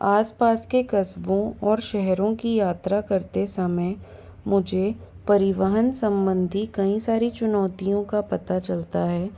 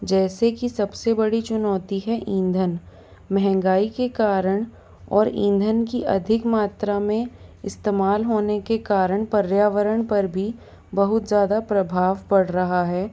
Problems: none marked